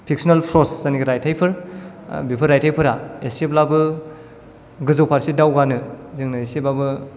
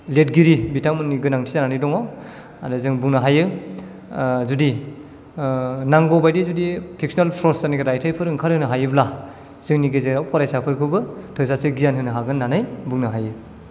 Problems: none marked